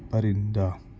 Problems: background sounds at intervals